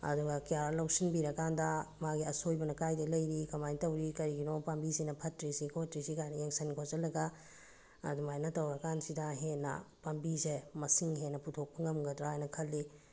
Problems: background sounds at intervals